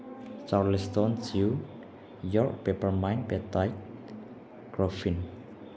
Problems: background sounds at intervals